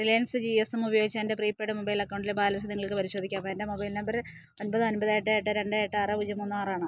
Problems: none marked